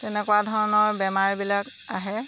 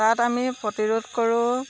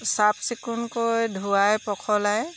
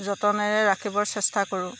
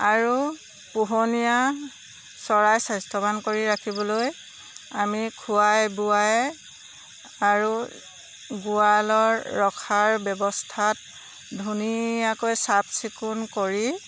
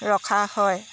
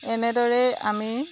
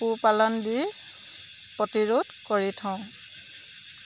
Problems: none marked